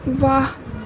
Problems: constant background noise